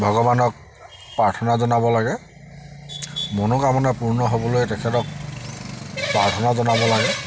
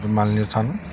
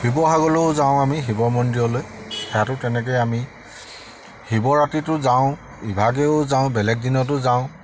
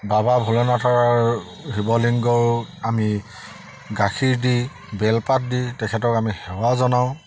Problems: none marked